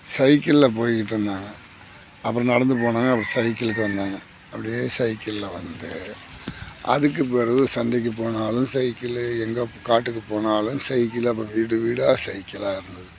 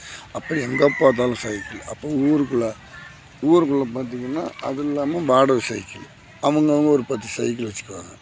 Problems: background sounds at intervals